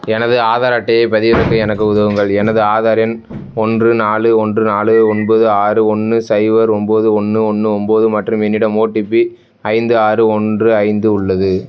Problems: background sounds at intervals